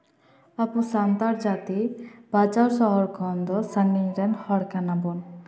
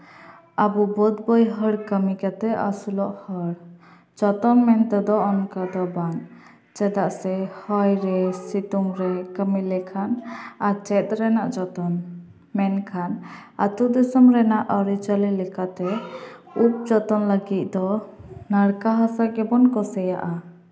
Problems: background conversations at intervals, echo